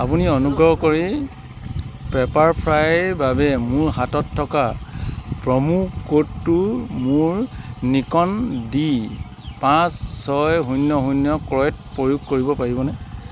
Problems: background sounds at intervals